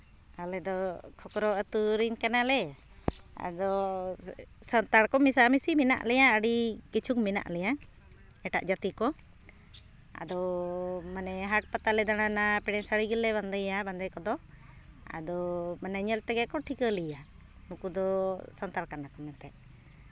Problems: constant background noise